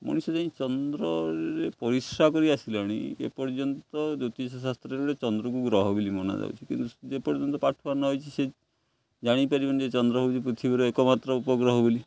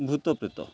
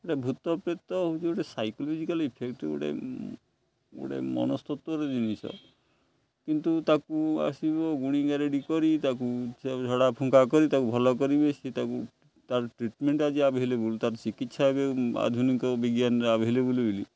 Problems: none marked